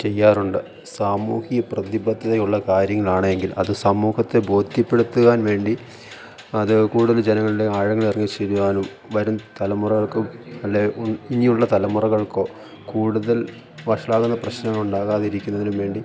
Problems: constant background noise